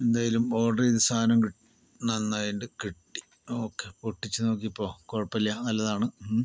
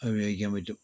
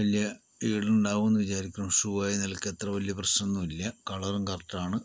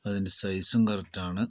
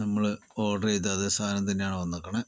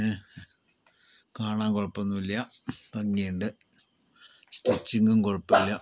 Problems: background sounds at intervals, low volume